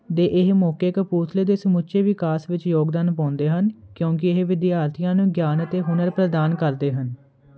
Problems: constant background noise